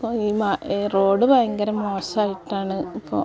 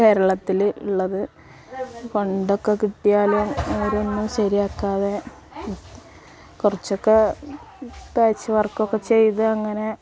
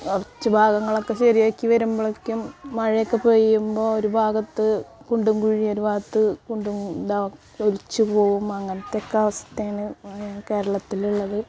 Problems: background sounds at intervals, background conversations at intervals